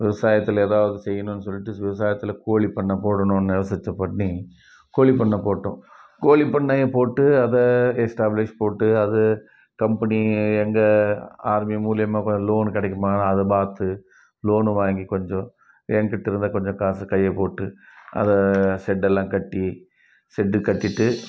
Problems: background sounds at intervals, continuous background conversations